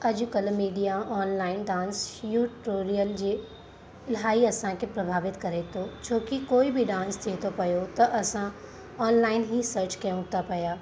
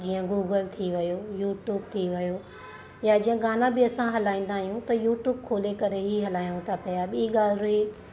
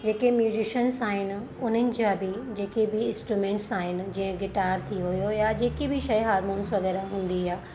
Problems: constant background noise